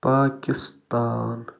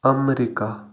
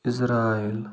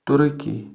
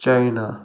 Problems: constant background noise